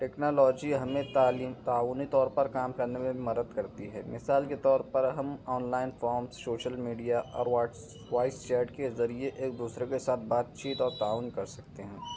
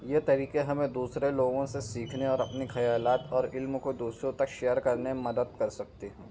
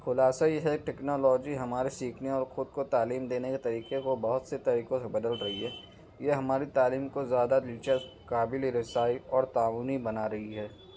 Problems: background sounds at intervals